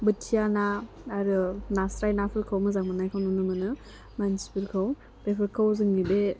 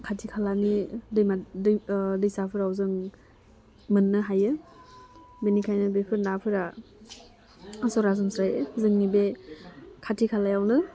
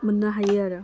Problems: constant background noise